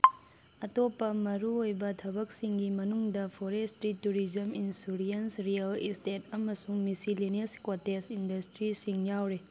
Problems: background sounds at intervals